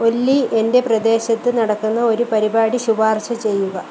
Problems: none marked